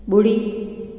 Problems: constant background noise, echo